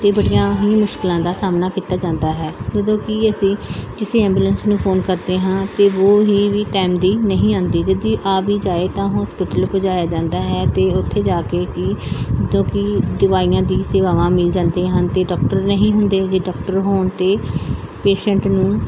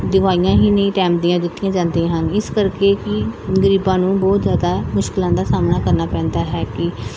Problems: constant background noise